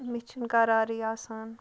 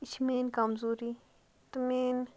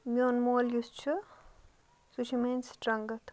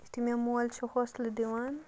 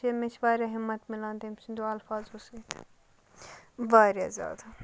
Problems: background sounds at intervals